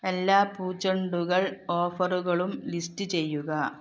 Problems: none marked